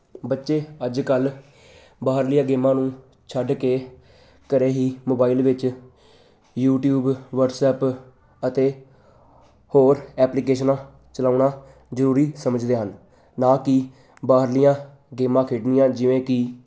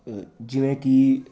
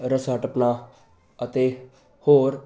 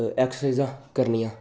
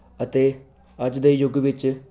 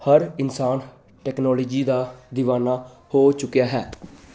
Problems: constant background noise